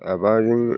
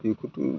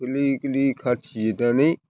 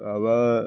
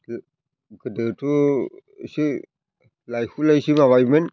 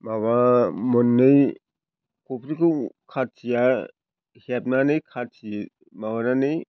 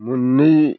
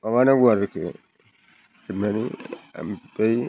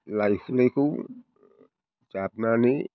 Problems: constant background noise